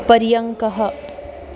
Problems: constant background noise